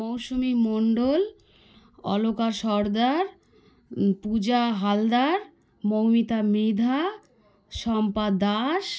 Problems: none marked